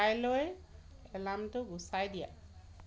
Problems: constant background noise